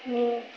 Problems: continuous background conversations